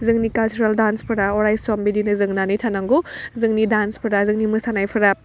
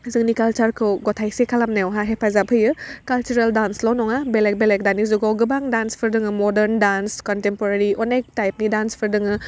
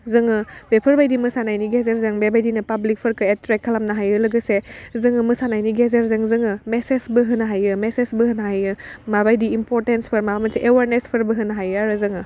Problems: none marked